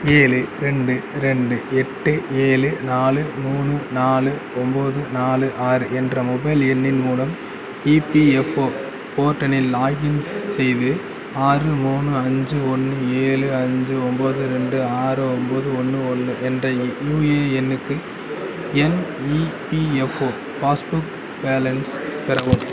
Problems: continuous background conversations